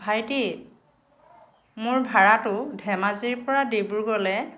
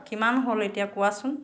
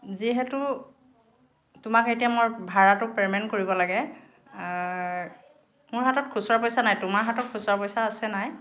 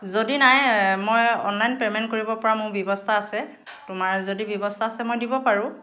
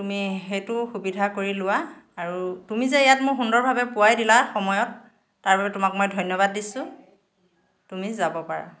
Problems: background sounds at intervals, continuous background conversations